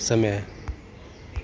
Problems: none marked